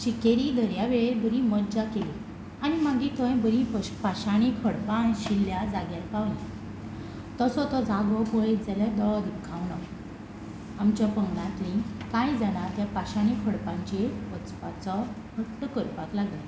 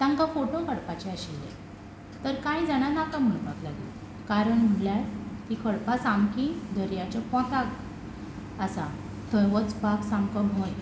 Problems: none marked